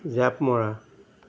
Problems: none marked